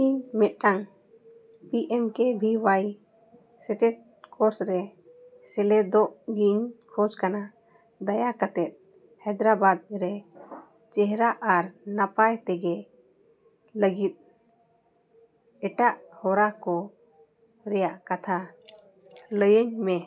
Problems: none marked